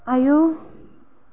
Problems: low volume